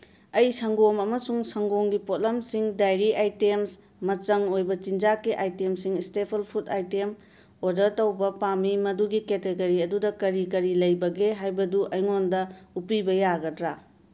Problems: none marked